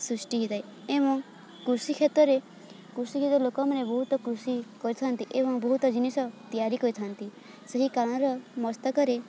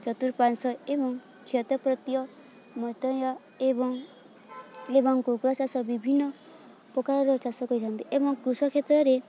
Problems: constant background noise